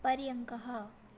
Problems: none marked